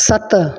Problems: background sounds at intervals, echo